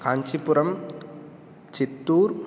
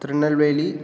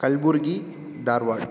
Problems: none marked